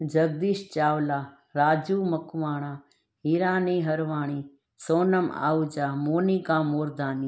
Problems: none marked